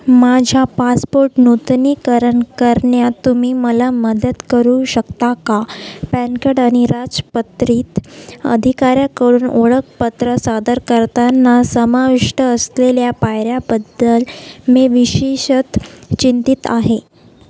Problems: none marked